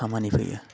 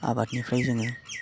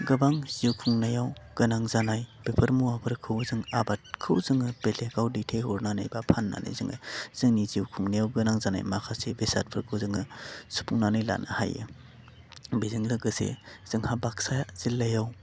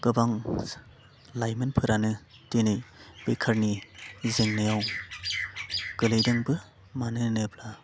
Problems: low volume